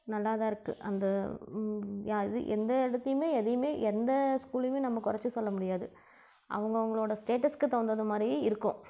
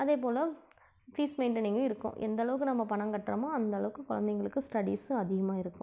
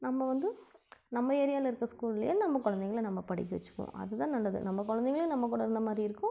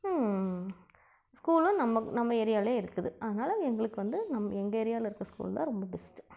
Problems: low volume